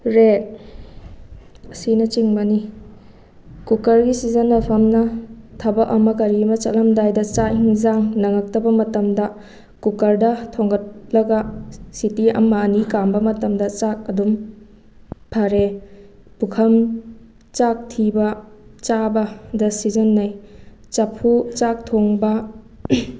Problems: none marked